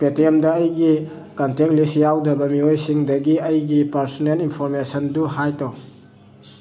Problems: constant background noise